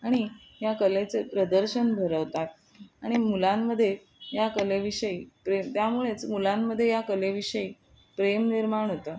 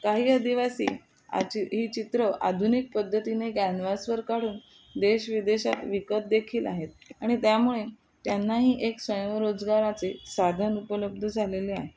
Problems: none marked